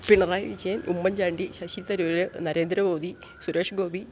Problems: none marked